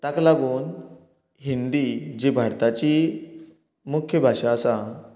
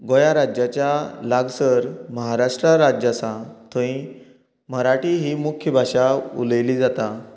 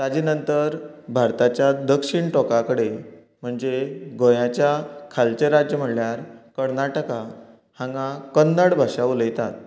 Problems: continuous background conversations